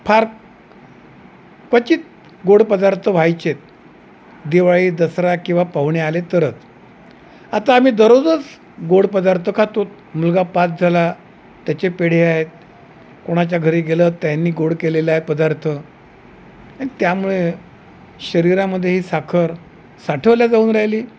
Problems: none marked